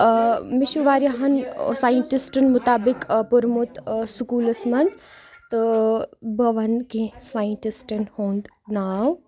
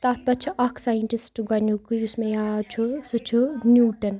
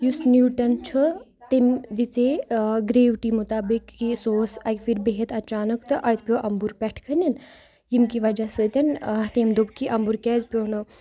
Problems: none marked